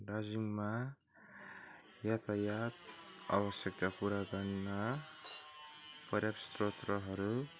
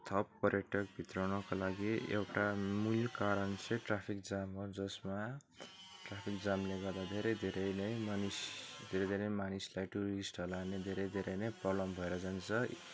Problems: background sounds at intervals